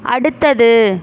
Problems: none marked